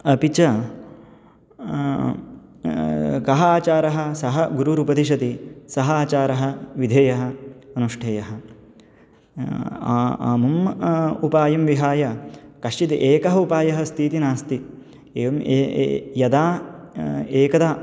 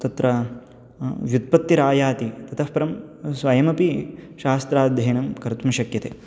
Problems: background sounds at intervals